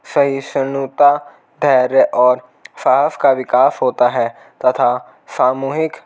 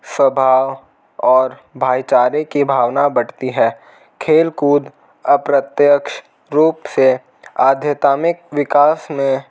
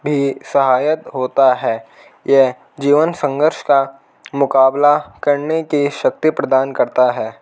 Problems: none marked